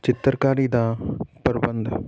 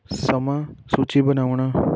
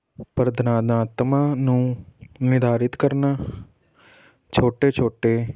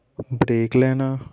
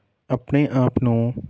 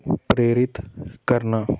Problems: constant background noise